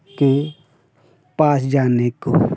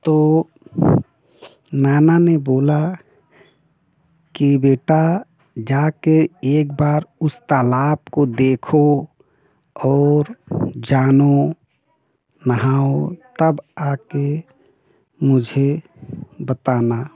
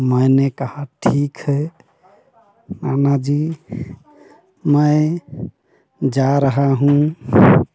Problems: none marked